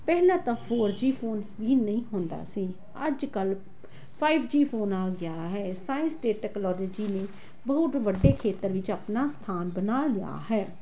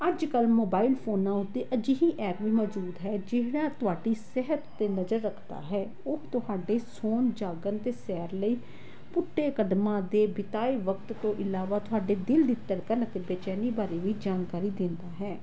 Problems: none marked